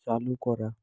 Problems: none marked